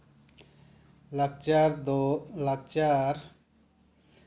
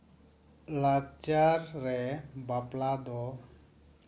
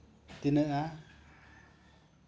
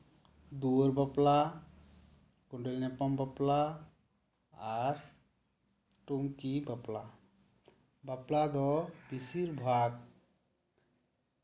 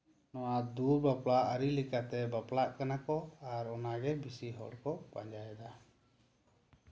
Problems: none marked